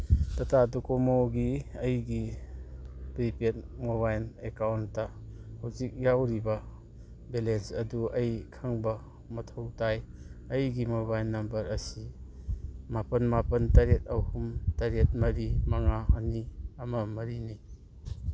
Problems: background sounds at intervals